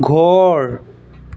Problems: background sounds at intervals